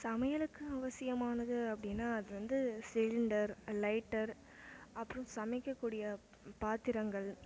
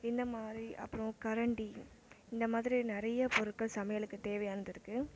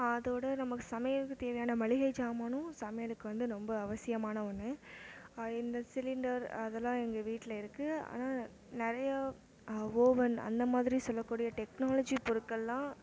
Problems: low volume